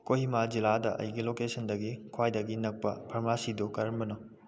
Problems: none marked